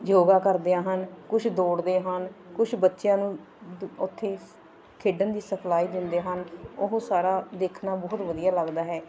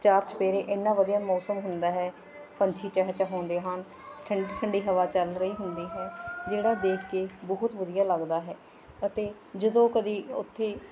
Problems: continuous background conversations